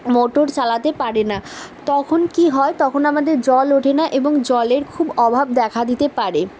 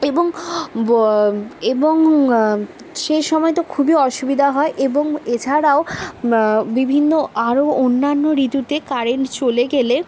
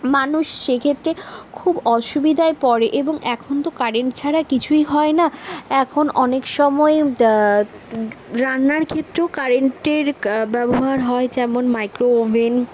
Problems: constant background noise